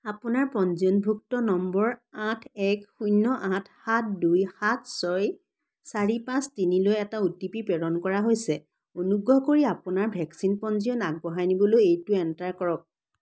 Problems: none marked